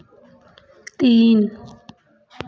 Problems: background sounds at intervals, background conversations at intervals